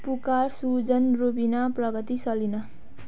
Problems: background sounds at intervals